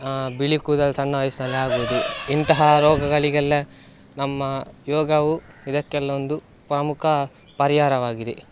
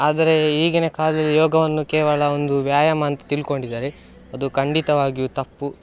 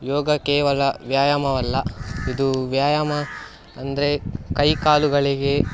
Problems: background sounds at intervals